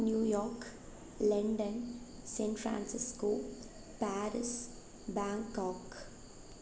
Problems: constant background noise, low volume